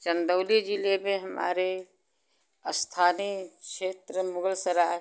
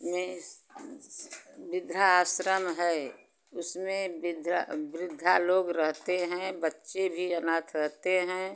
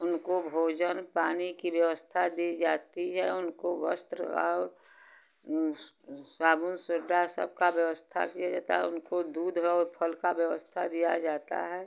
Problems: constant background noise